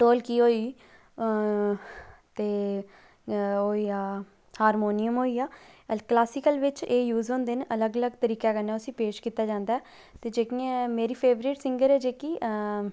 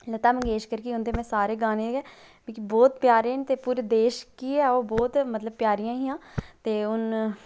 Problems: low volume